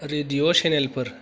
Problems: background sounds at intervals